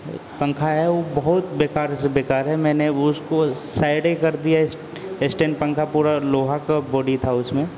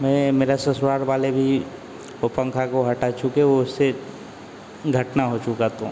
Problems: constant background noise